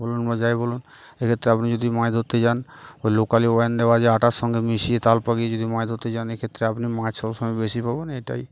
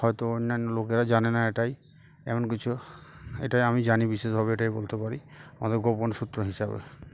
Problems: background sounds at intervals, background conversations at intervals